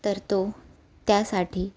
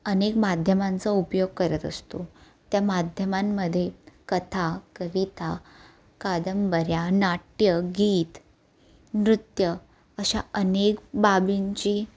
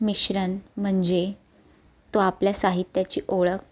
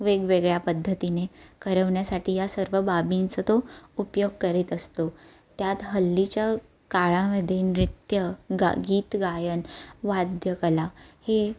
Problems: none marked